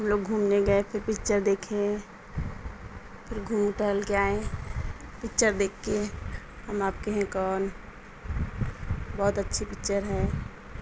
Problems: constant background noise